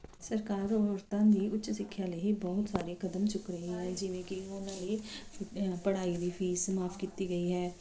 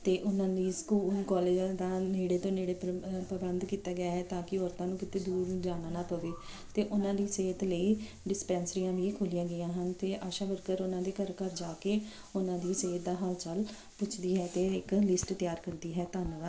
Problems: background sounds at intervals